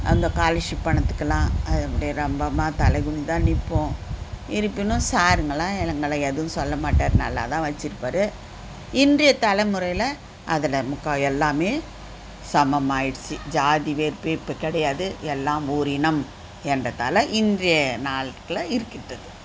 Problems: constant background noise